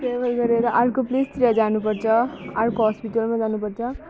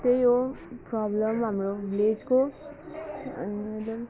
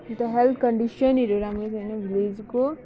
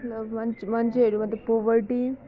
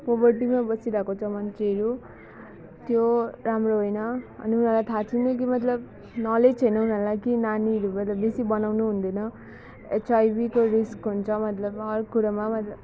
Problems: background sounds at intervals